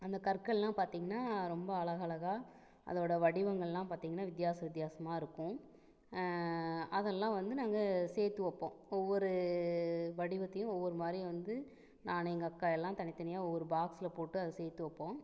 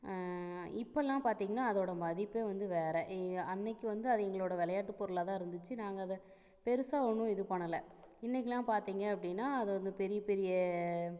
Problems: none marked